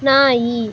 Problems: background sounds at intervals